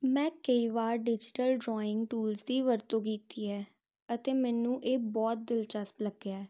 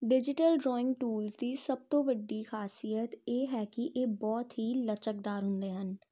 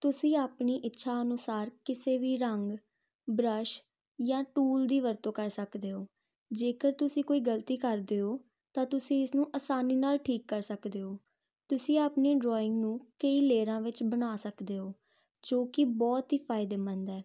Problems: constant background noise